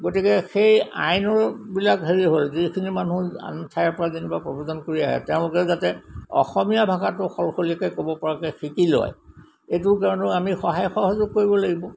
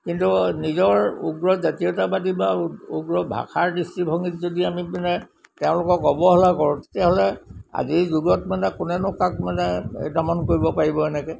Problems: constant background noise